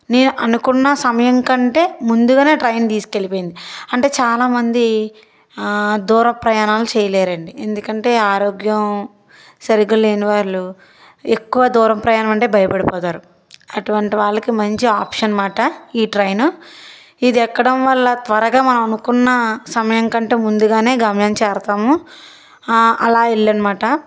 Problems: background sounds at intervals